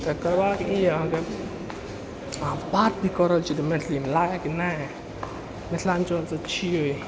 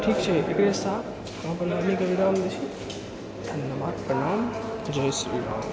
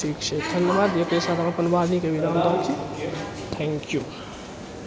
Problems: constant background noise